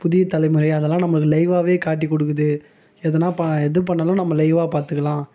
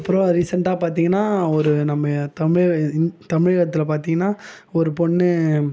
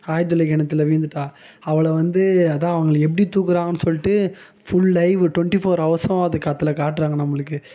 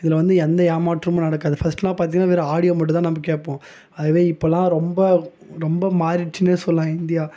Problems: background conversations at intervals